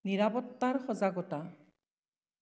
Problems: echo